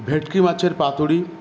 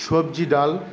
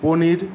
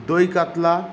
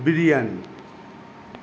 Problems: constant background noise